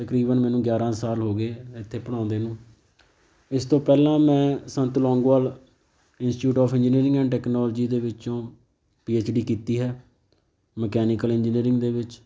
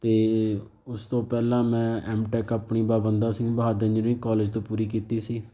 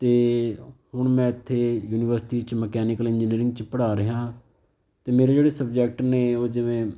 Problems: background sounds at intervals